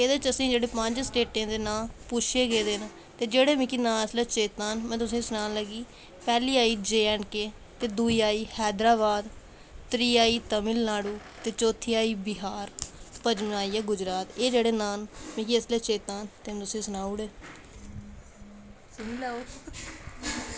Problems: constant background noise